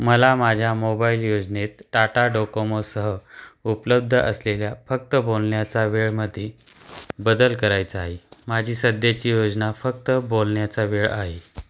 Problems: background sounds at intervals